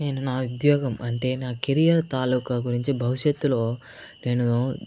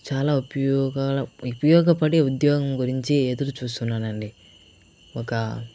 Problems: constant background noise